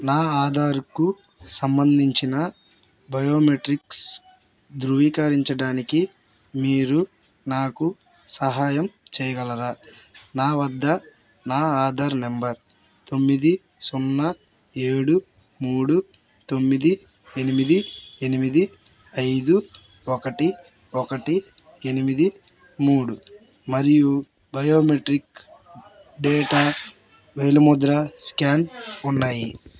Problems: constant background noise